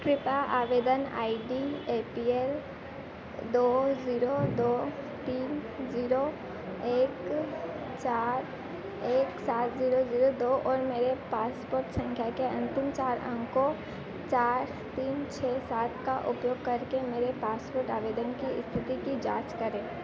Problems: constant background noise